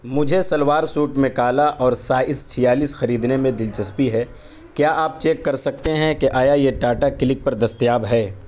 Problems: background sounds at intervals